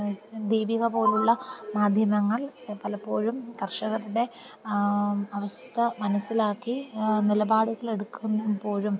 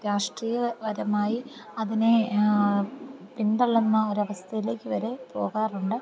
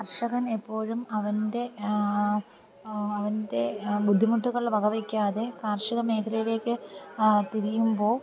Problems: none marked